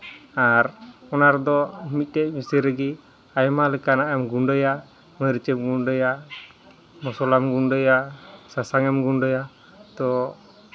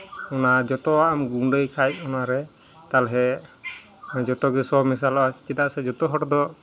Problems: constant background noise, background conversations at intervals